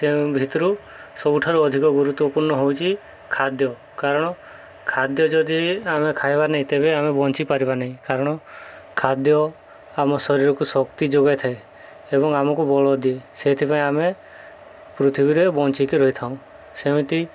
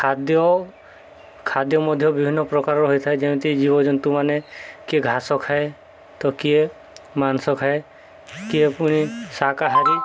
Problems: background sounds at intervals